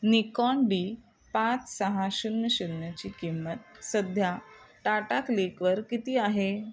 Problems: background sounds at intervals